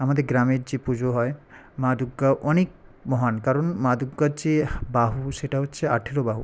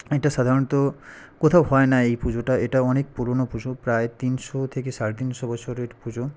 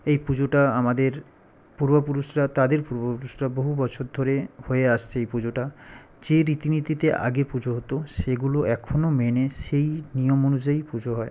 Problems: none marked